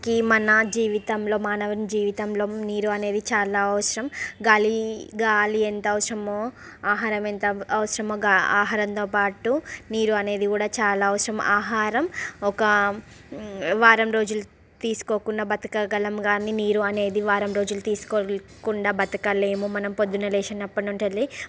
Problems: background sounds at intervals, background conversations at intervals